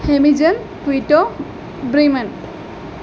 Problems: constant background noise